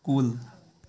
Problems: none marked